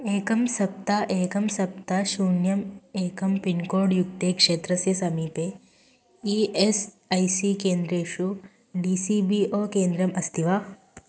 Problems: constant background noise